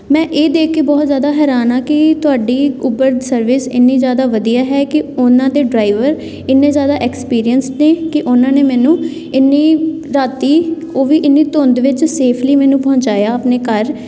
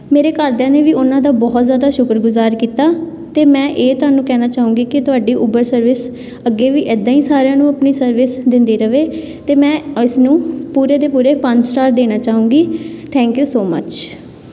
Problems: background conversations at intervals